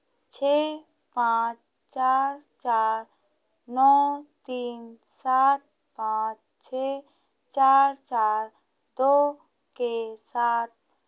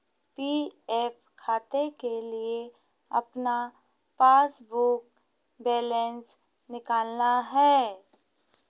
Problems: none marked